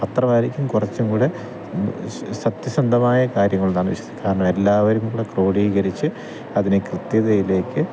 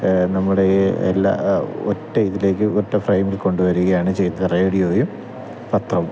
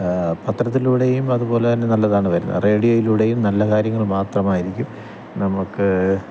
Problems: constant background noise, low volume